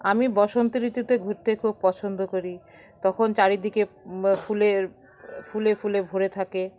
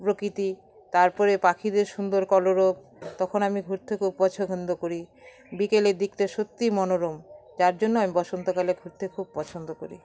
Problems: none marked